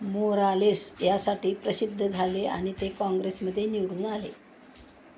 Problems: none marked